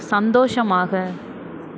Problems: none marked